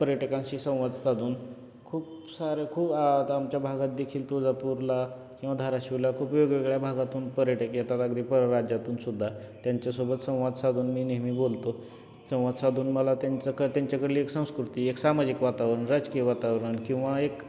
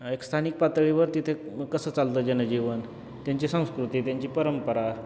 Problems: none marked